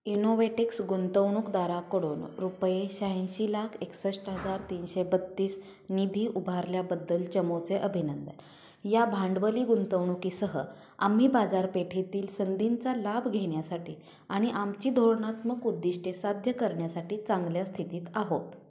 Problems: background sounds at intervals